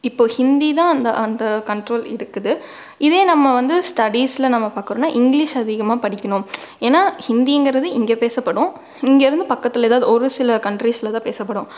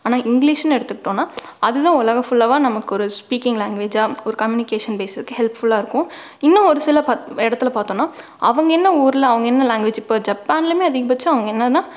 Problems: none marked